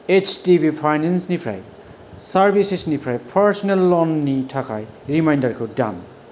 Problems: none marked